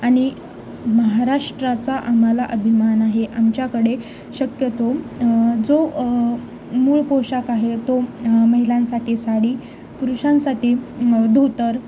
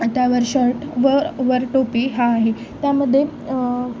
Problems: constant background noise, continuous background conversations